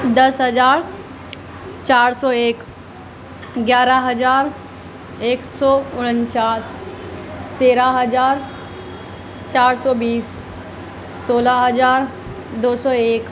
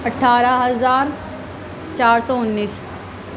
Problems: constant background noise, background conversations at intervals